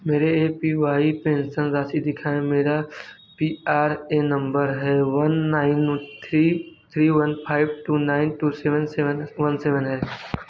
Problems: background sounds at intervals